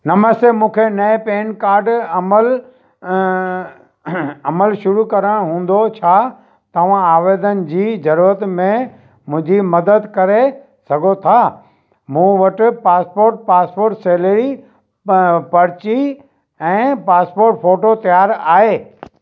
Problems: none marked